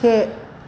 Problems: constant background noise